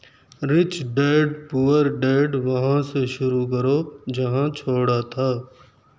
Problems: none marked